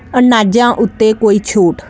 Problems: constant background noise